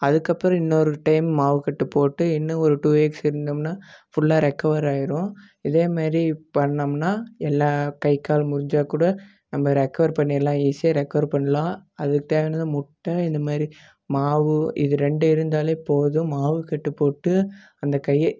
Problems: none marked